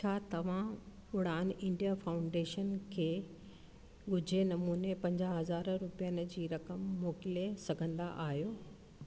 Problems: constant background noise, echo